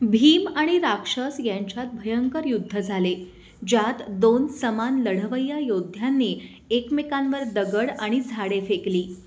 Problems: none marked